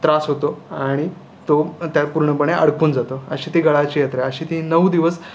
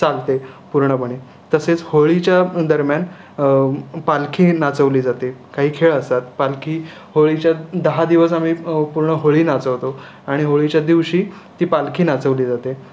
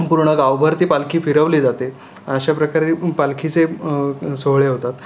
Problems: none marked